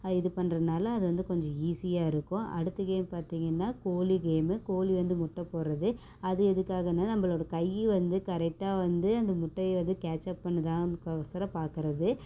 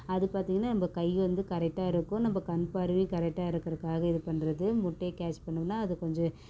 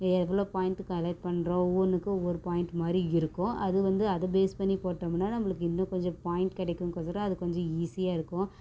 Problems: constant background noise